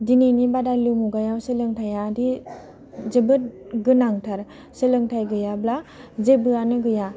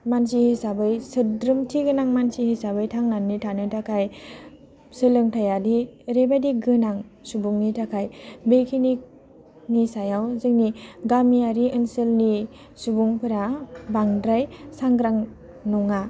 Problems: low volume